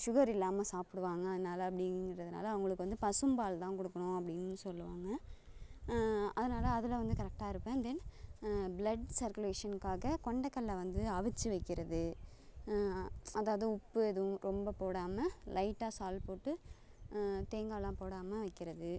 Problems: none marked